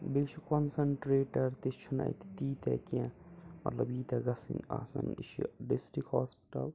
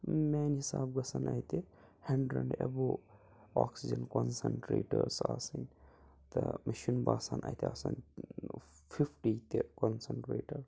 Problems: background sounds at intervals, low volume